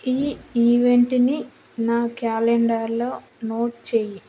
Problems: constant background noise